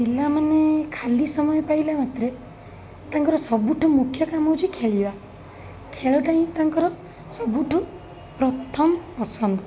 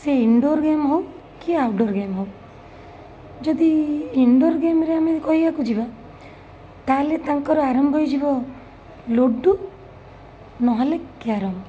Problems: none marked